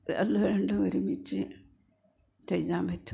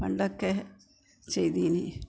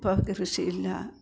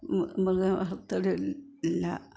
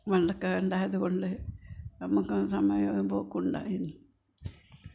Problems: low volume